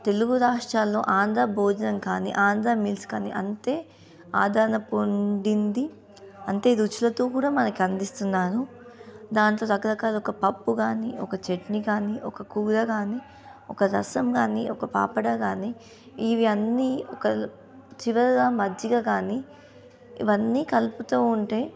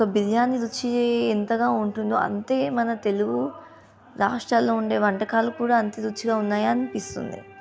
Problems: continuous background conversations